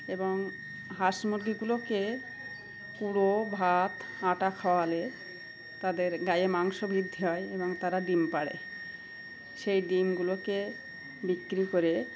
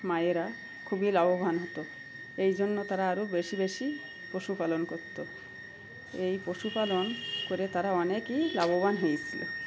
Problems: constant background noise, continuous background conversations